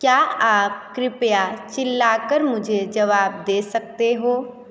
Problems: constant background noise